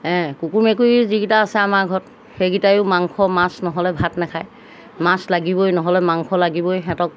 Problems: background sounds at intervals